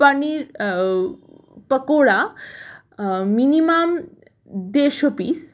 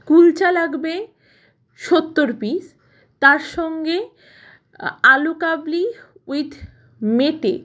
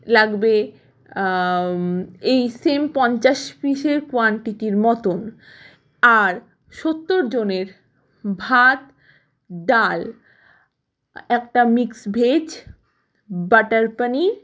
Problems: background sounds at intervals